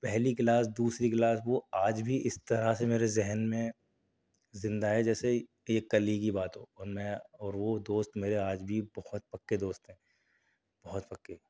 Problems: none marked